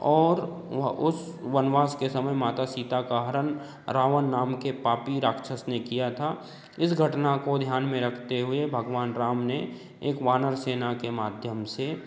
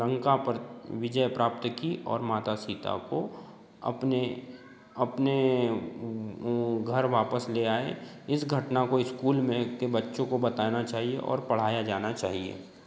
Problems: none marked